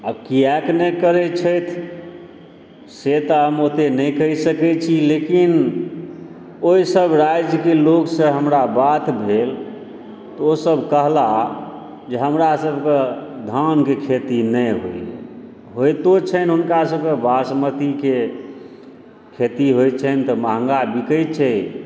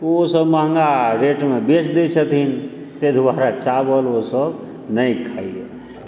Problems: background sounds at intervals